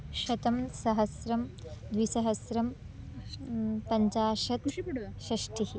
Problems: background sounds at intervals, background conversations at intervals